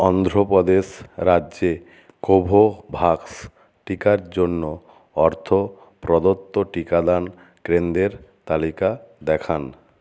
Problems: background sounds at intervals